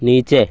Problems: constant background noise